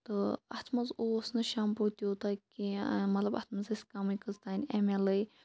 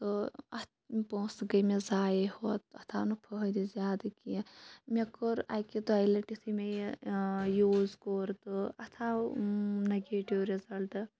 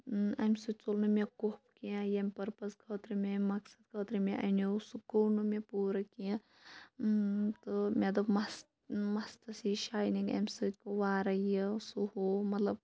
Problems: background sounds at intervals